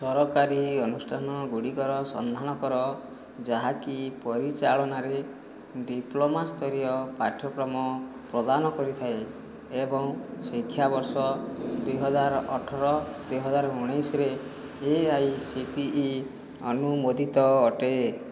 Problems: background sounds at intervals